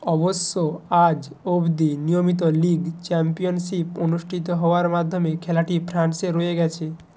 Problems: constant background noise